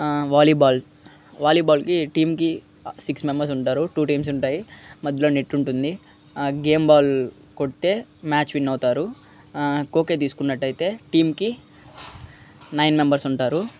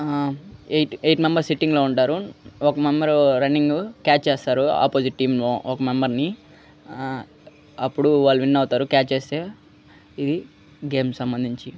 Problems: none marked